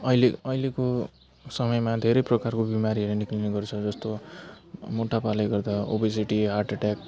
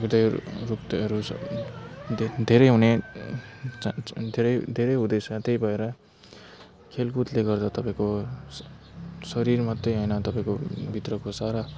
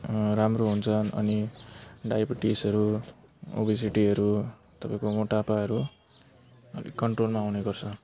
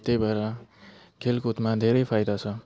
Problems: constant background noise